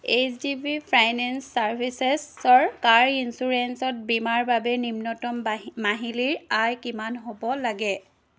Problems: background sounds at intervals